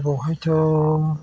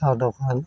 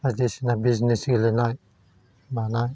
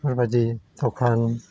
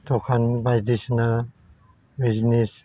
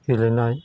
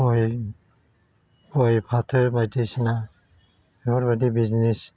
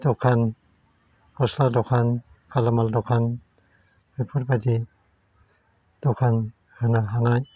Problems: constant background noise